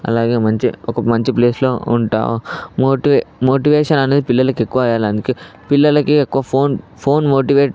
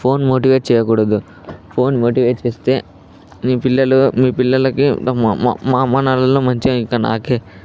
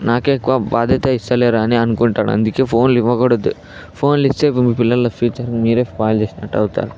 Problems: background sounds at intervals, background conversations at intervals